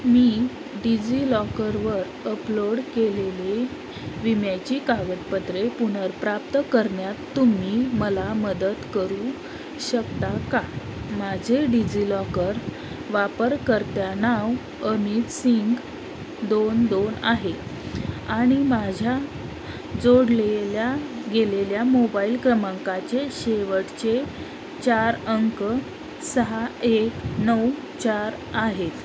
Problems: constant background noise